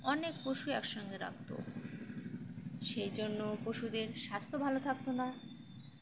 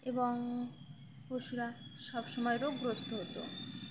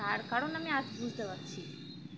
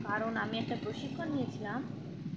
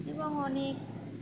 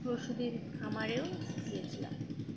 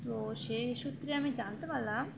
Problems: constant background noise, low volume